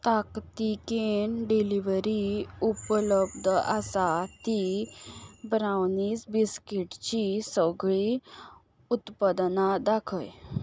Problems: background sounds at intervals